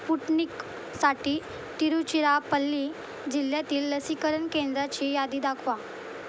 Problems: constant background noise